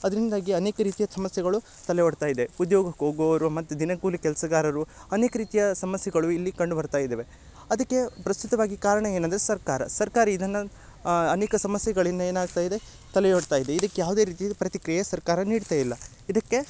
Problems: none marked